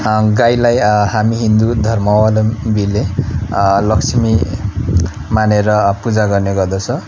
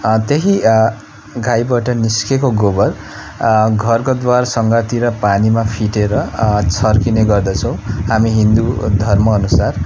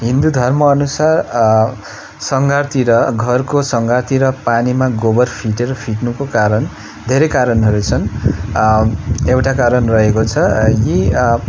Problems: background conversations at intervals